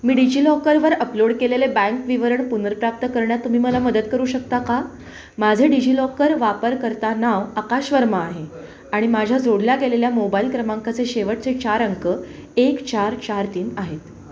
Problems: constant background noise, background conversations at intervals